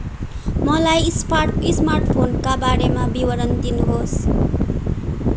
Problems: constant background noise